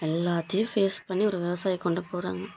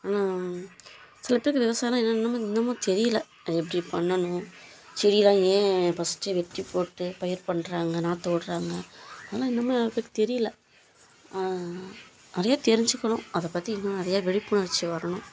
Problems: low volume